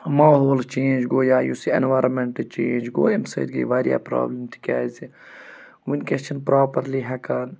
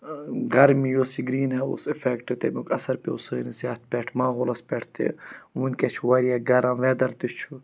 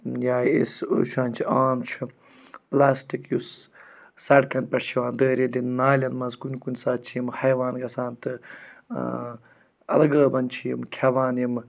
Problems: none marked